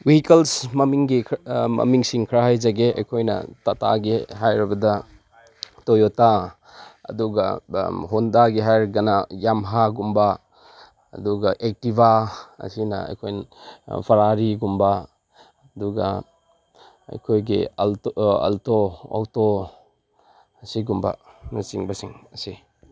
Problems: background sounds at intervals